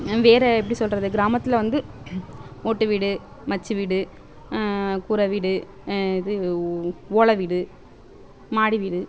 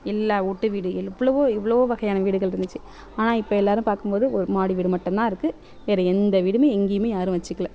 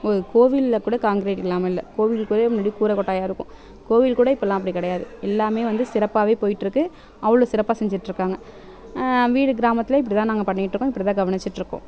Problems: background sounds at intervals